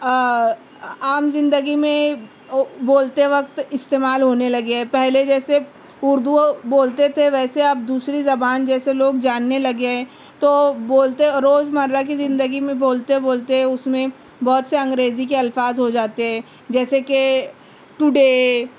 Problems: none marked